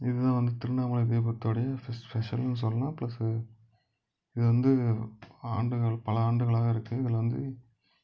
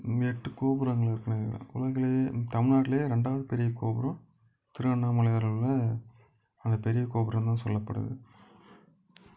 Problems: background sounds at intervals